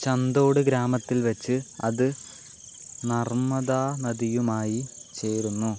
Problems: constant background noise